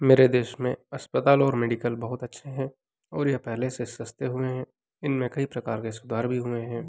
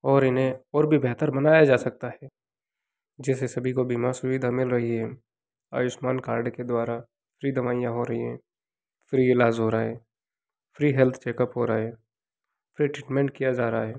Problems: background sounds at intervals